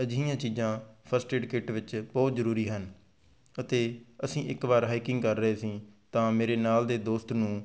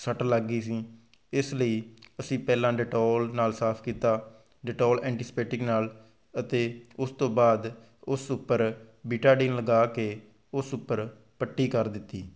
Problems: none marked